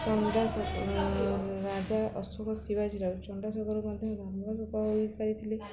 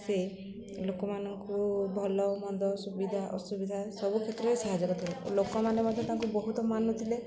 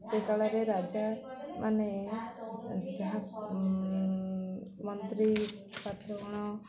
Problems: low volume